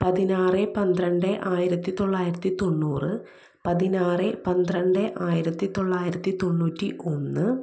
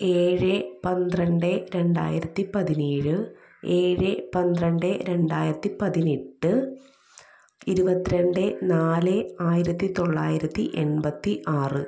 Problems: echo, low volume